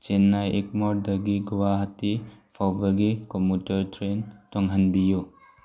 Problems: background sounds at intervals